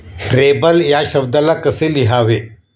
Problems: none marked